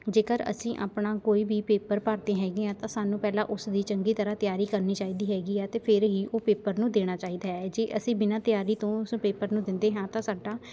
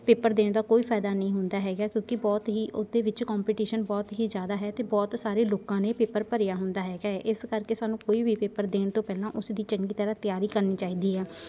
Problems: constant background noise, continuous background conversations